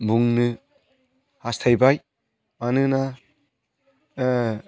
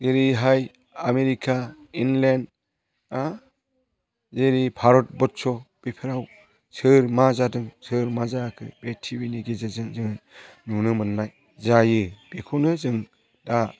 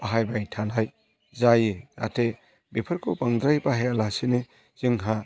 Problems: constant background noise